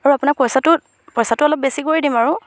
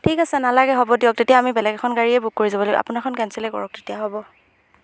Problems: none marked